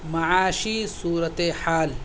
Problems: constant background noise